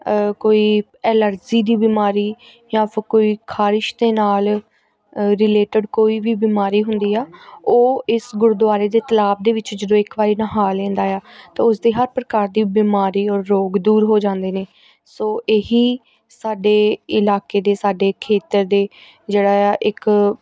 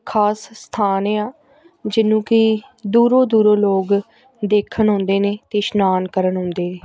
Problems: background sounds at intervals, background conversations at intervals